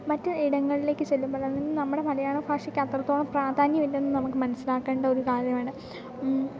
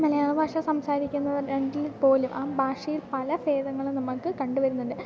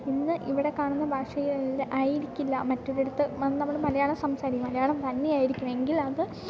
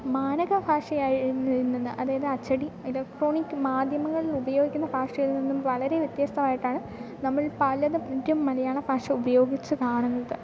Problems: none marked